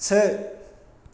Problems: constant background noise